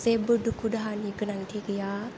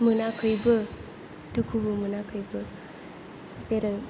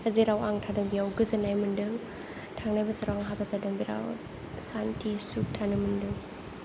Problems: low volume